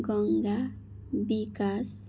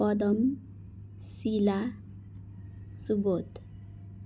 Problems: background sounds at intervals, background conversations at intervals